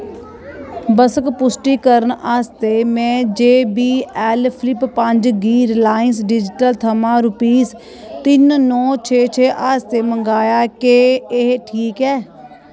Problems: none marked